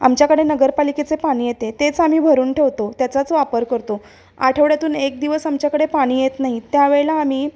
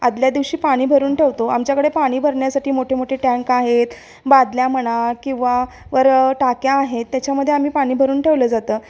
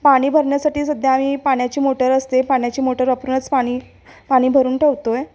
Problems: constant background noise